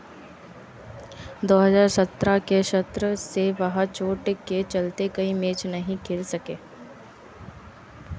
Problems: none marked